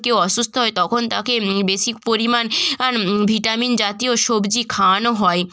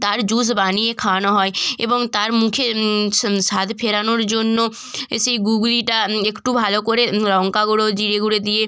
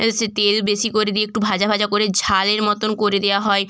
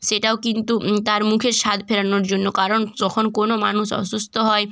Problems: background conversations at intervals